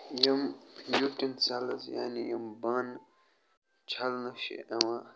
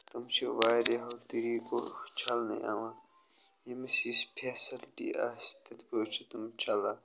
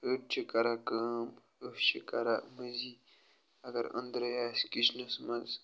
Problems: none marked